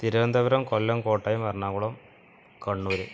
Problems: none marked